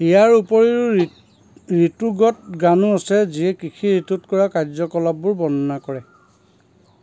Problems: constant background noise